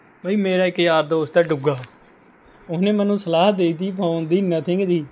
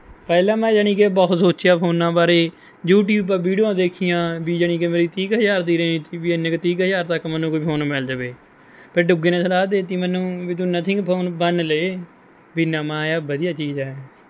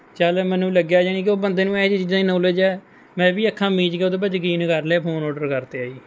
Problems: none marked